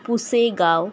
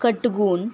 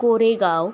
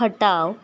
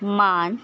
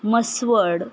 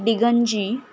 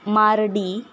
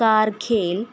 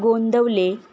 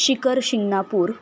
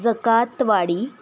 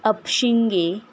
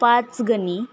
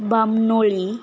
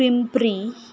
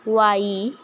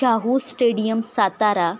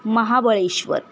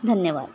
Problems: constant background noise